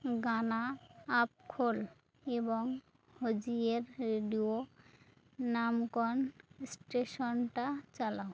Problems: none marked